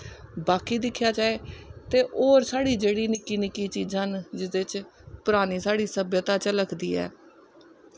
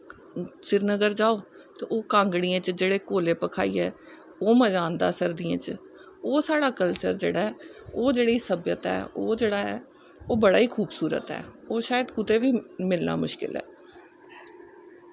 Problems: none marked